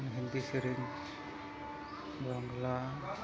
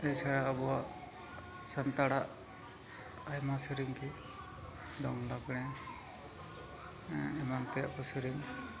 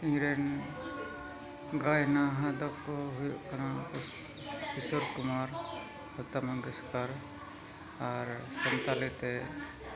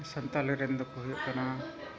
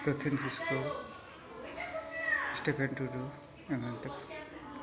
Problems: constant background noise, continuous background conversations, low volume